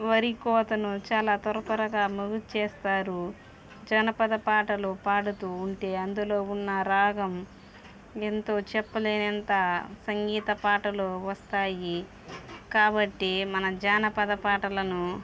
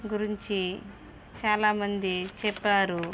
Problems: background sounds at intervals